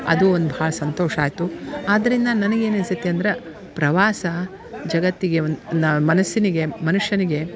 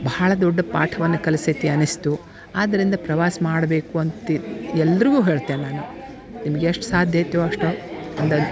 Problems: background sounds at intervals